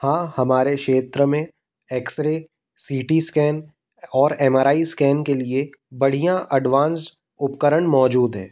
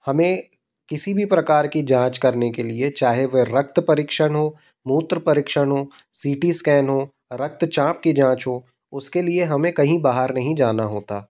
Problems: background sounds at intervals